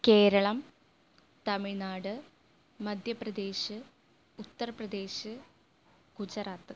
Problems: low volume